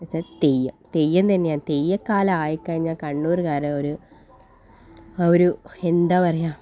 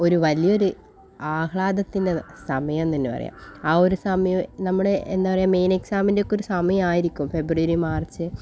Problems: none marked